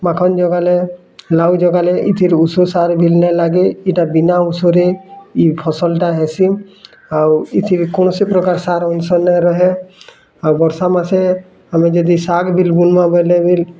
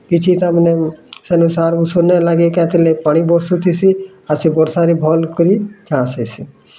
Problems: constant background noise, continuous background conversations